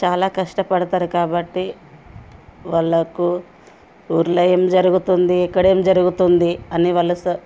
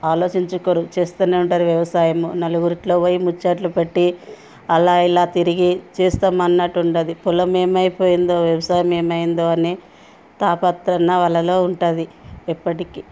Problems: background sounds at intervals